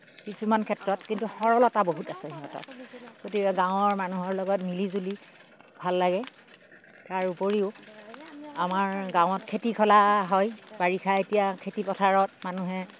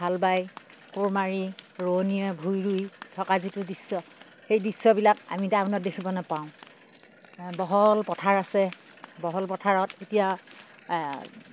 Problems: none marked